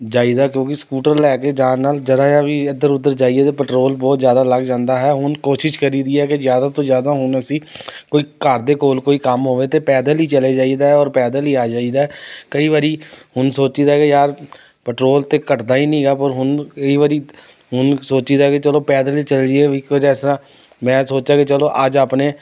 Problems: none marked